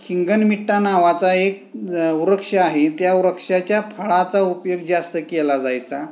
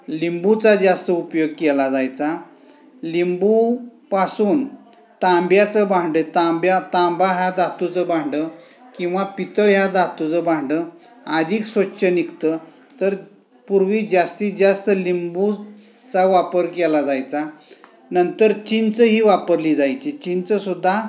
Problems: constant background noise, continuous background conversations